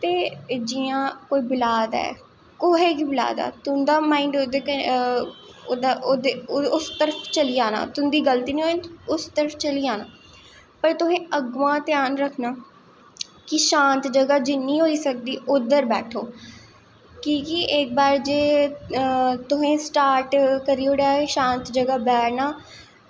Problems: echo